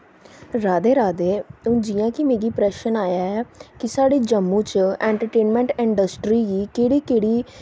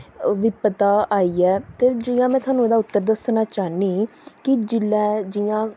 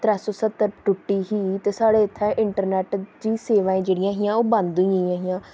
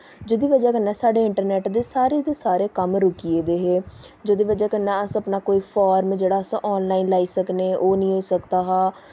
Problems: constant background noise